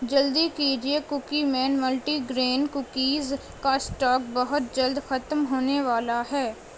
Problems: constant background noise, low volume